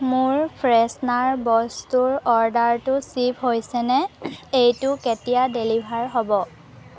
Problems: constant background noise, background conversations at intervals